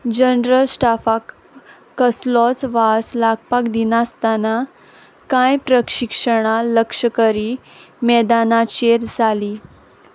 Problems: constant background noise